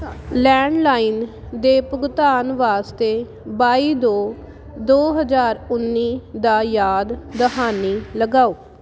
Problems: none marked